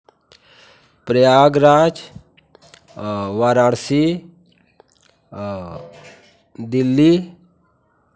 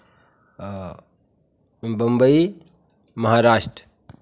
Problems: constant background noise, continuous background conversations